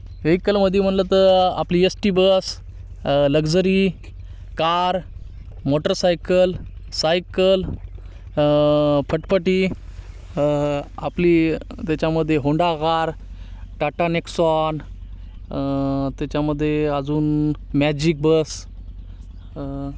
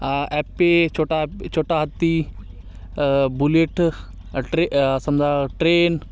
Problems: constant background noise, continuous background conversations